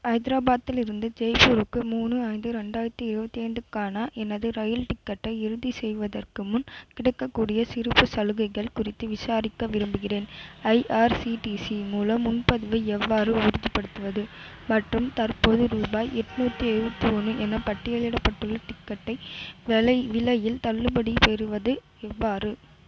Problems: constant background noise